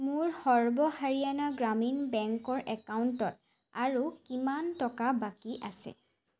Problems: constant background noise